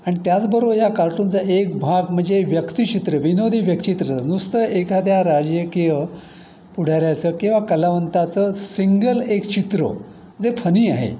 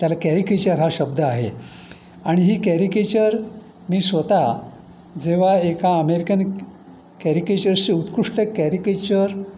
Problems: constant background noise